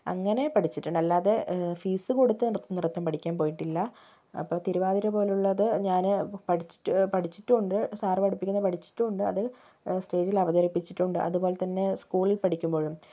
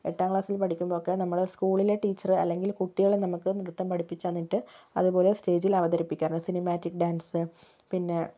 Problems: low volume